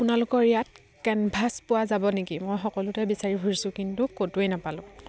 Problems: none marked